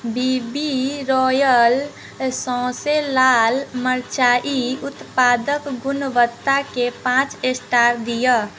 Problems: none marked